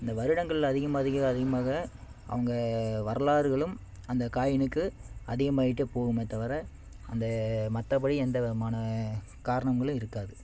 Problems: none marked